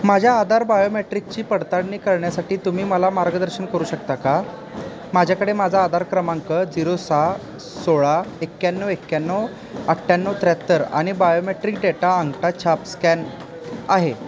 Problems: constant background noise, continuous background conversations